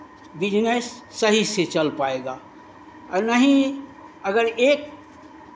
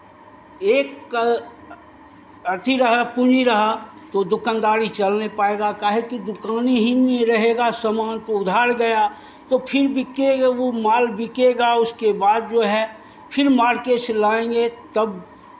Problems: none marked